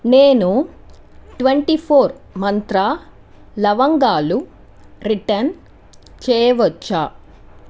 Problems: constant background noise